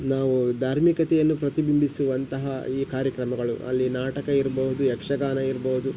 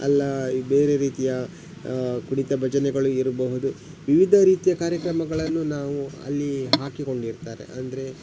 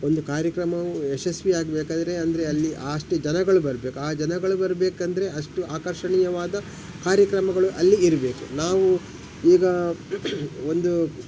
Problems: background sounds at intervals